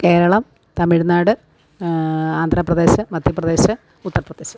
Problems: background sounds at intervals